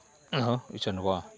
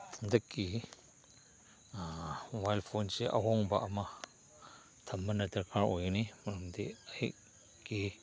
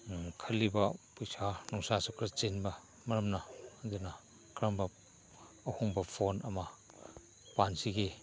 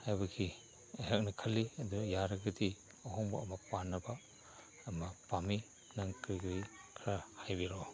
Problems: background sounds at intervals, background conversations at intervals